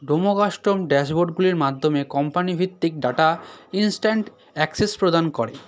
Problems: background sounds at intervals